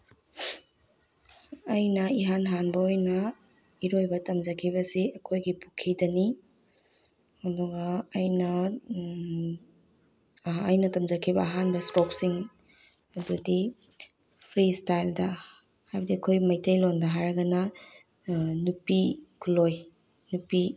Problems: none marked